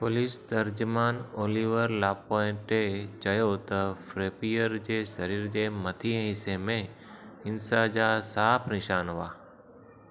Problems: constant background noise, echo